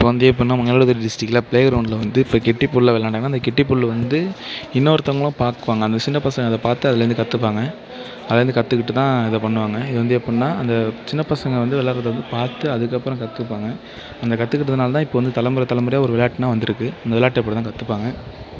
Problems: constant background noise